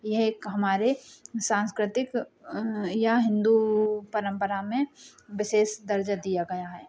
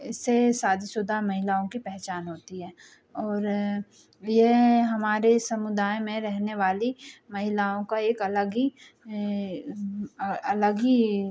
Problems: background sounds at intervals